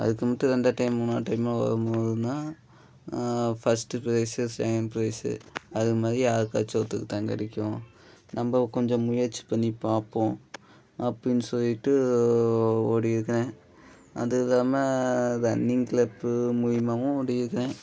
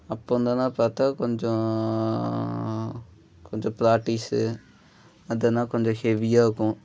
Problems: none marked